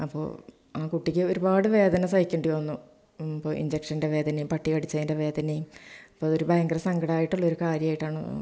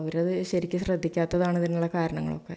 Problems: none marked